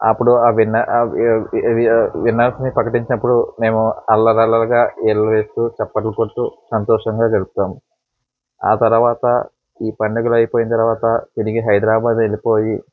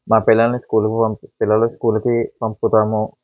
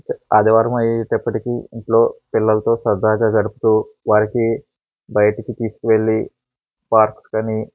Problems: background sounds at intervals